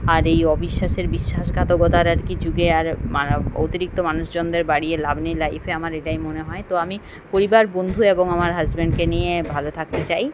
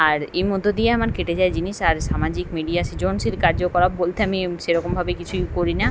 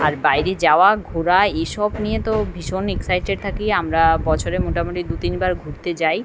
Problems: constant background noise